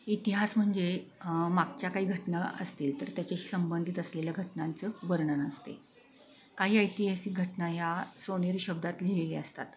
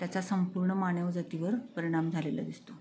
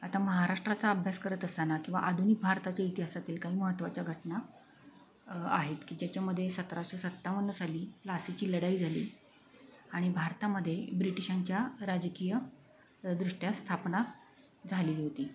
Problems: constant background noise, continuous background conversations